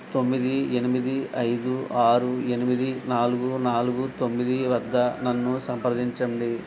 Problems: constant background noise